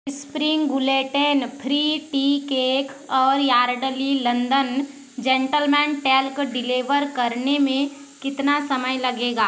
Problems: none marked